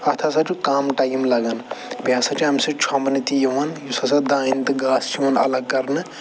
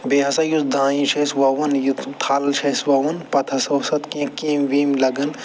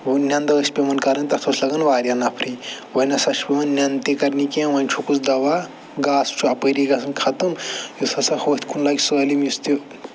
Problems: none marked